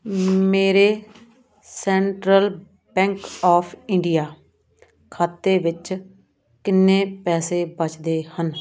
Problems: background sounds at intervals